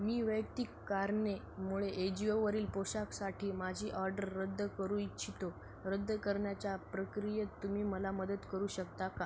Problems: none marked